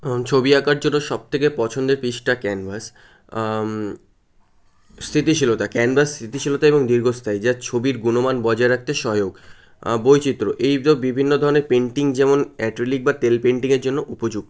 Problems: none marked